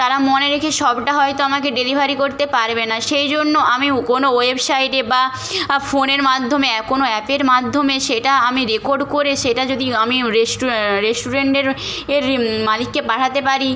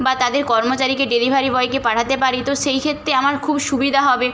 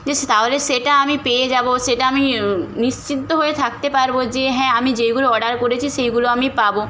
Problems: constant background noise